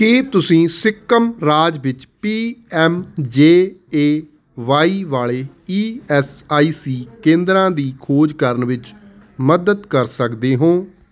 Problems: constant background noise